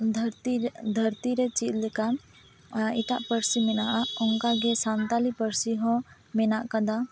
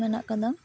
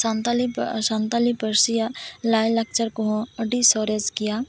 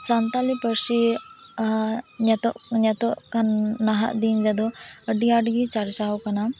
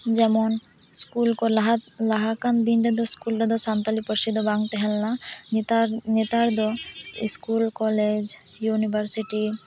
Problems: constant background noise, background conversations at intervals